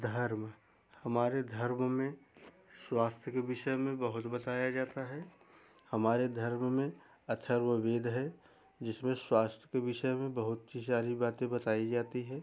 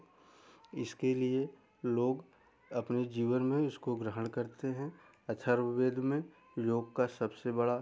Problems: background sounds at intervals